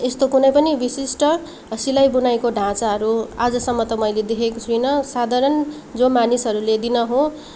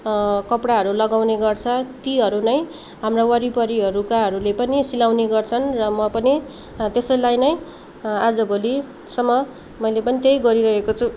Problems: none marked